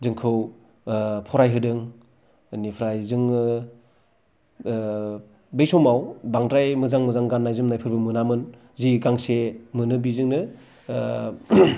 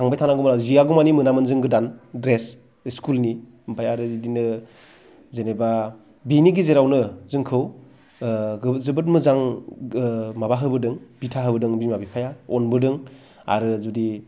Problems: none marked